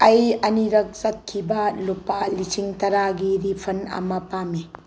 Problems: constant background noise